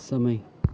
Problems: none marked